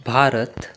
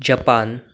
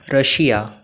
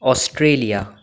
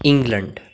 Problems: constant background noise